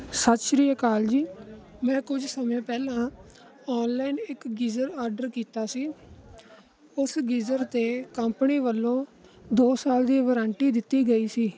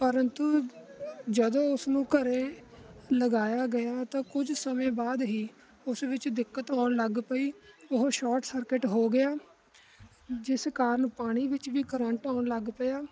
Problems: constant background noise